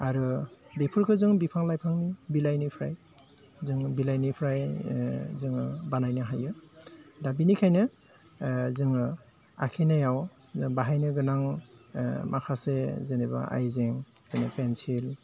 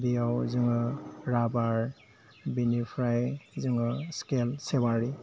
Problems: low volume